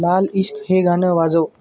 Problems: background sounds at intervals